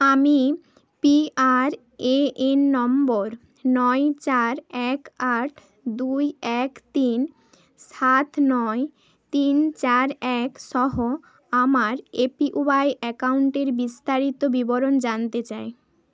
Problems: none marked